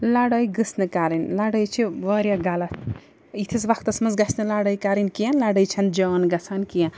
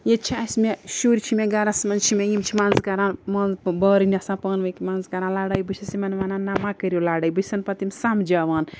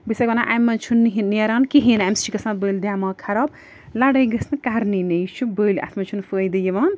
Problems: background sounds at intervals